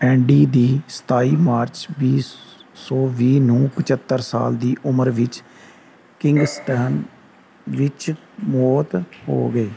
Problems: none marked